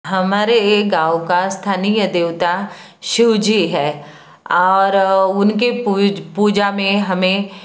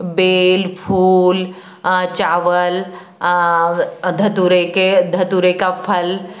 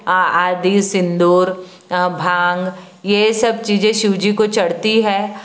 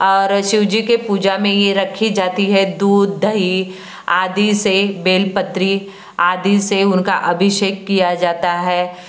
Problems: none marked